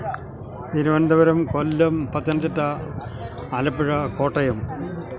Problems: constant background noise